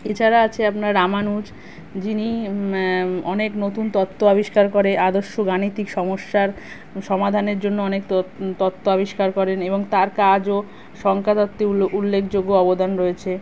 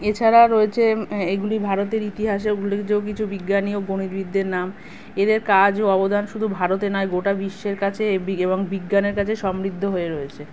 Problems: constant background noise